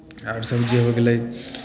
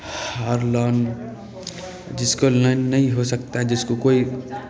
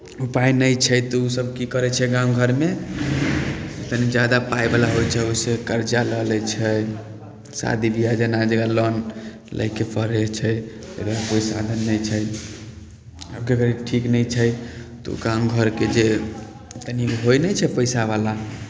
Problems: none marked